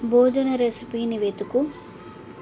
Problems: continuous background conversations